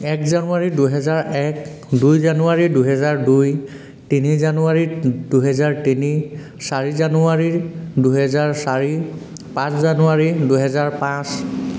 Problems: none marked